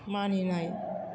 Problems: constant background noise